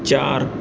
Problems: none marked